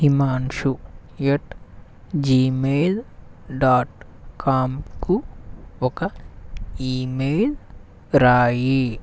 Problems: none marked